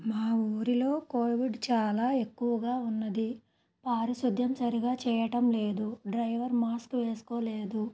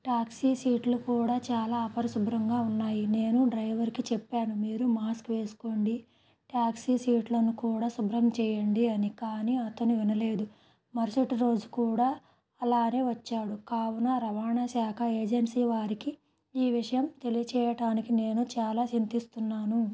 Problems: none marked